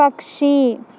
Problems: constant background noise